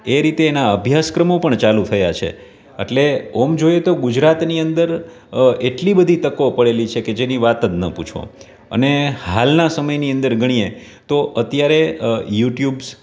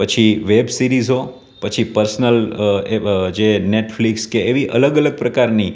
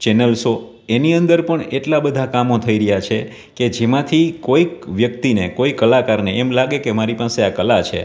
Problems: none marked